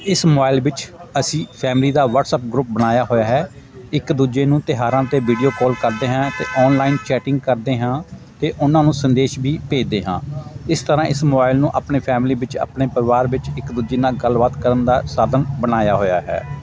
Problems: constant background noise, continuous background conversations